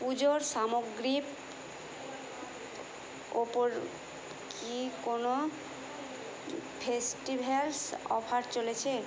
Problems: continuous background conversations